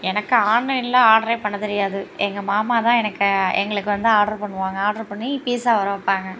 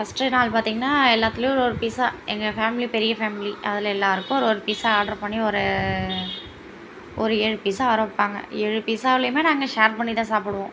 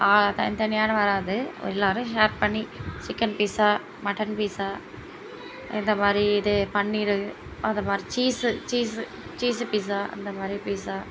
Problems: constant background noise